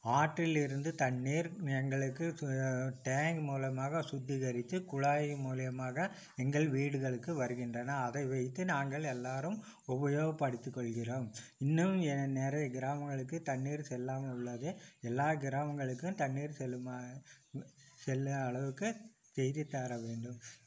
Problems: none marked